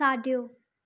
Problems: none marked